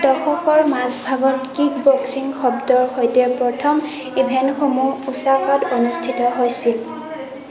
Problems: continuous background conversations